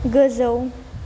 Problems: low volume